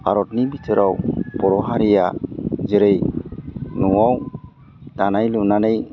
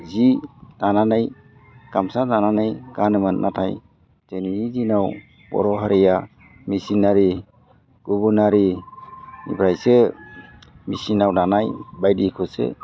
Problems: low volume